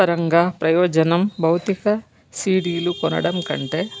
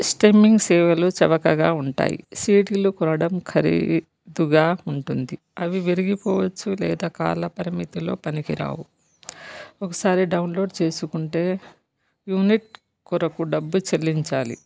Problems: background sounds at intervals